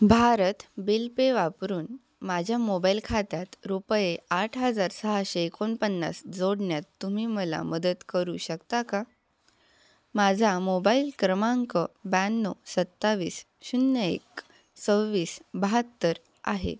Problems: background sounds at intervals